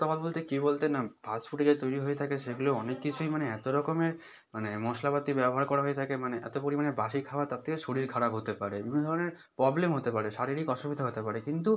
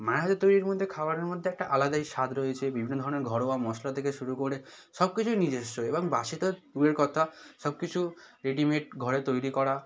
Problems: none marked